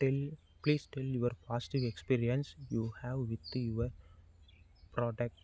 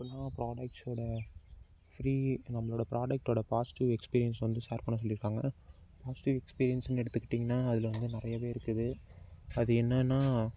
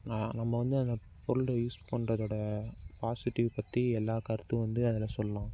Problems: none marked